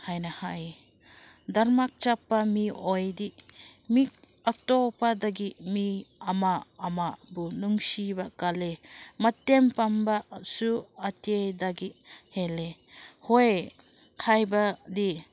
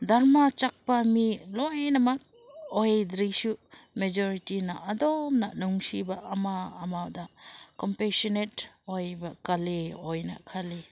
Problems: constant background noise